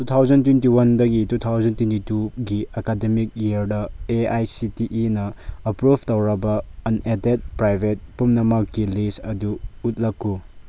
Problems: none marked